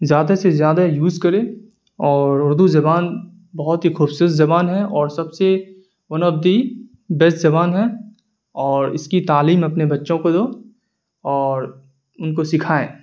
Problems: none marked